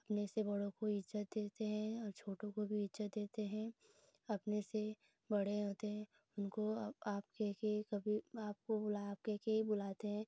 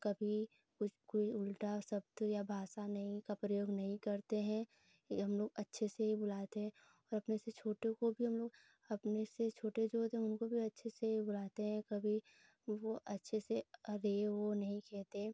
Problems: constant background noise